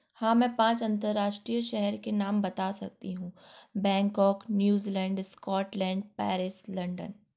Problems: background sounds at intervals